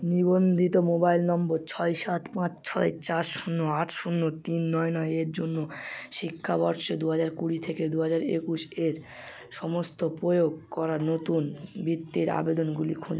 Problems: constant background noise